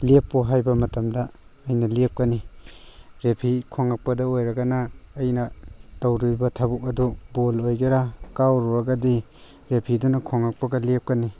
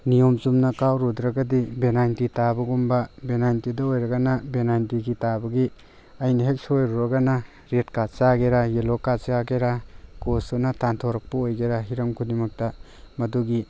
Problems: background sounds at intervals